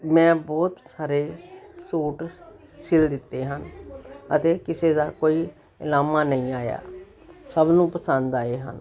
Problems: none marked